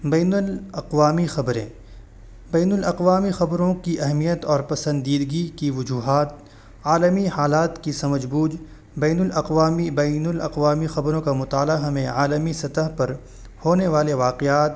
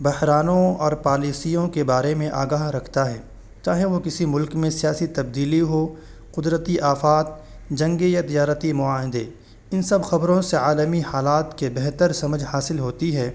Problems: constant background noise